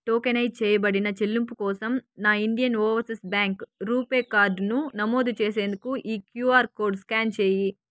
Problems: background sounds at intervals